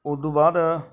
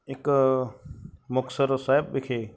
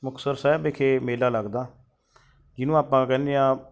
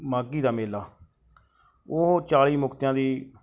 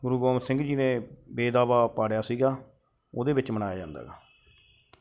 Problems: background sounds at intervals